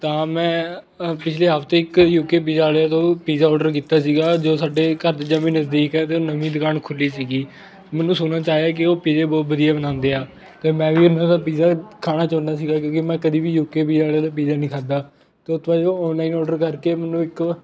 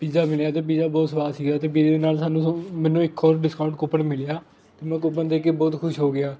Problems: constant background noise, continuous background conversations